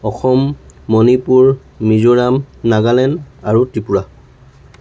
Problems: none marked